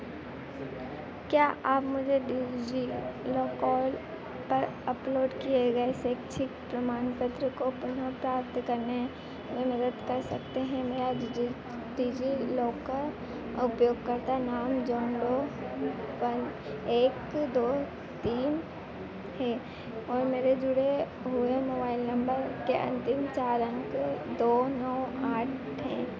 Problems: constant background noise